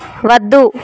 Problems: none marked